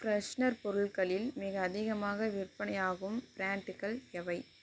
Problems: none marked